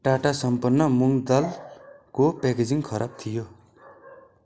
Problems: none marked